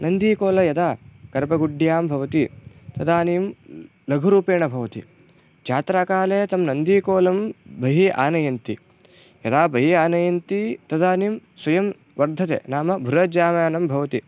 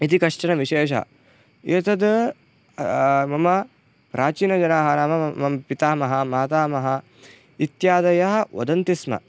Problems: background sounds at intervals